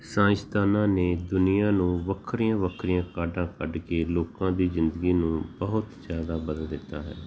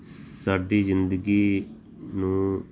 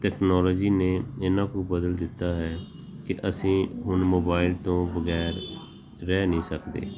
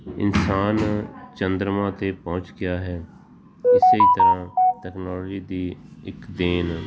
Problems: background sounds at intervals, background conversations at intervals